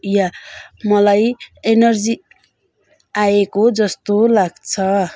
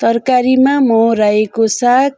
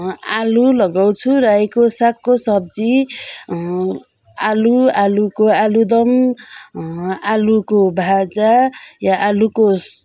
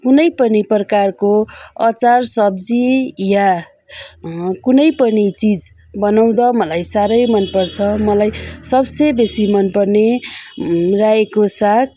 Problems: none marked